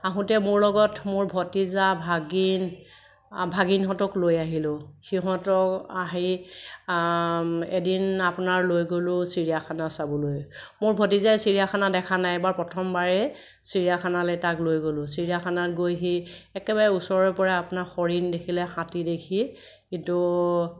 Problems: none marked